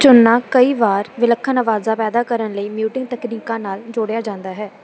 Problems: background sounds at intervals